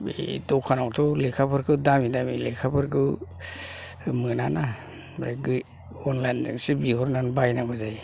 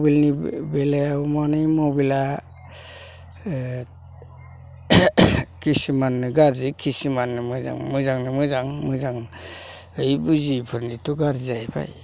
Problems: none marked